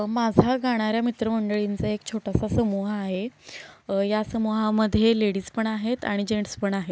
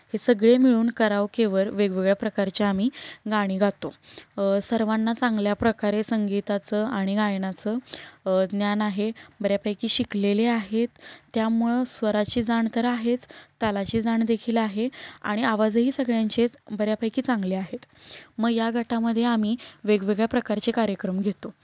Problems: background sounds at intervals